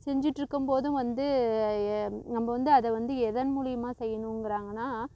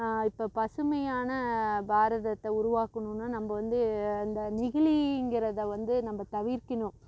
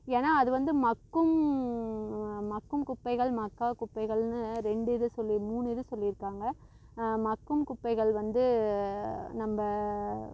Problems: constant background noise